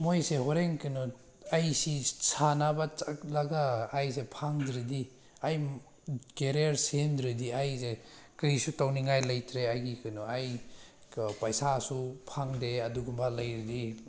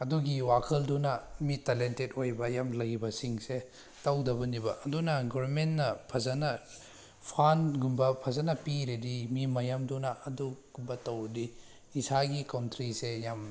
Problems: none marked